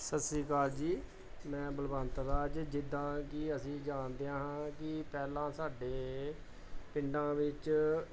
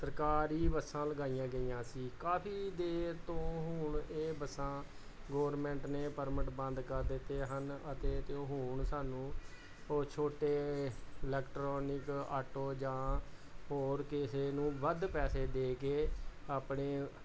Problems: none marked